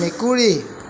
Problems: constant background noise